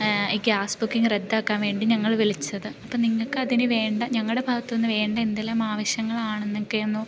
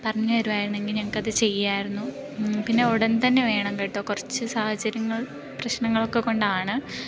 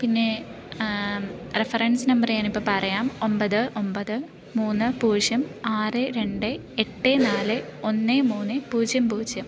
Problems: none marked